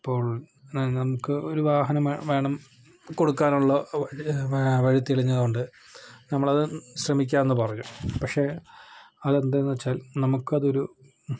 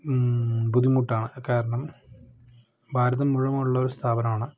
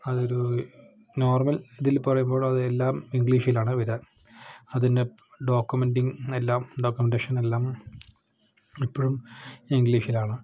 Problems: none marked